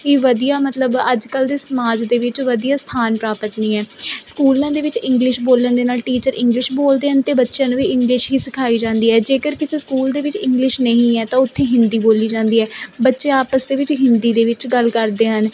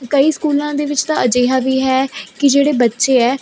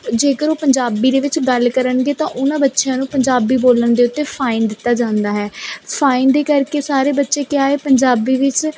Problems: none marked